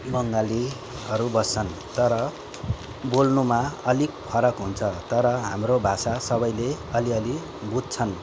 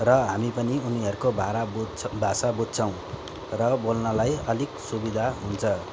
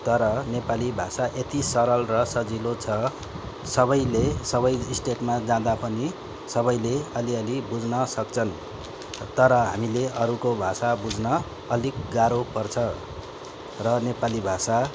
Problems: constant background noise